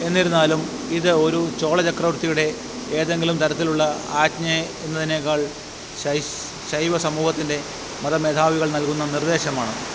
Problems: constant background noise